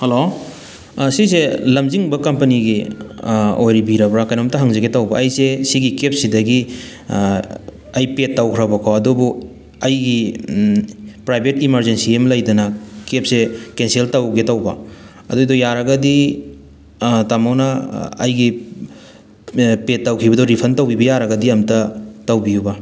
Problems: background sounds at intervals